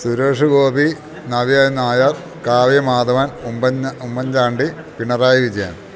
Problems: background sounds at intervals